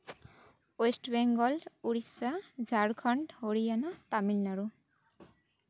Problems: none marked